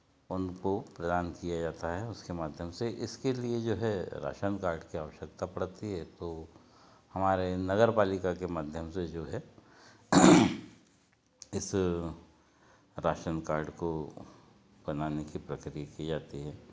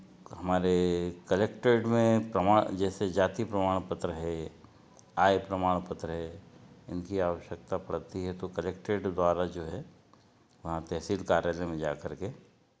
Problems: none marked